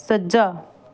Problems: none marked